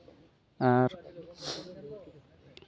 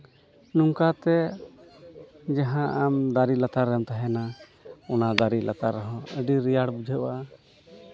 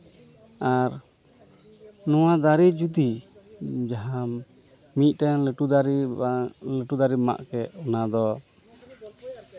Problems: constant background noise, continuous background conversations